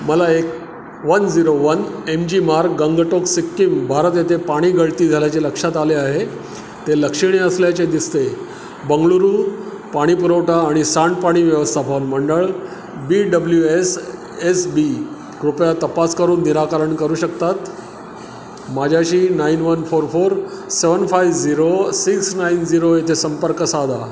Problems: constant background noise